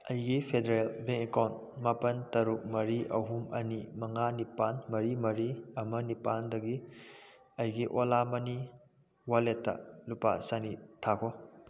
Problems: none marked